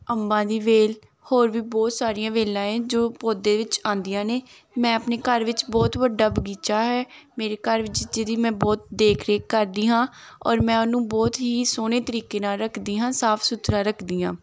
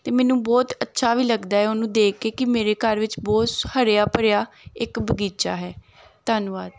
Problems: none marked